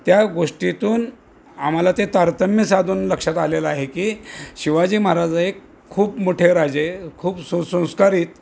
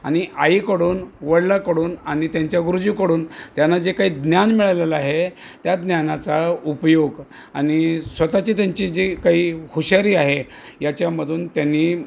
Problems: none marked